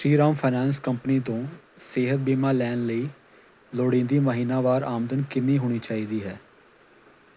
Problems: constant background noise